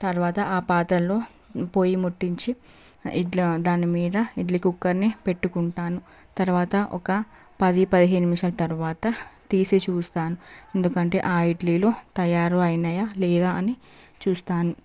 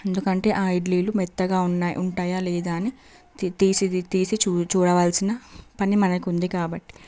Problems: background sounds at intervals